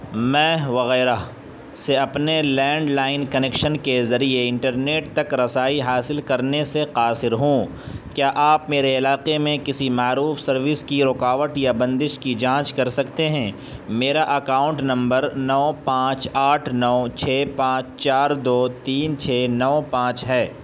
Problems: constant background noise